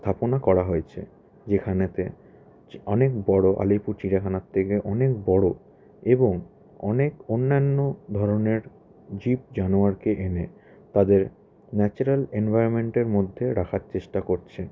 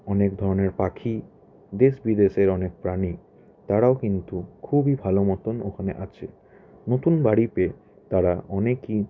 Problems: background sounds at intervals, continuous background conversations